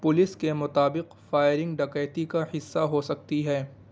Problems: constant background noise